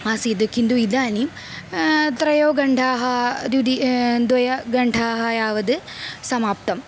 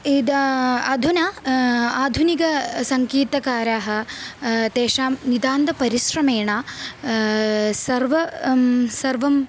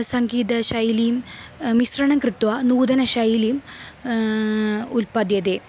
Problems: constant background noise